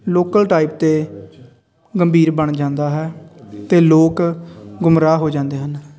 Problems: none marked